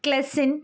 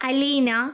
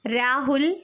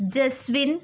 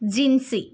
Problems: none marked